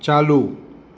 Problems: constant background noise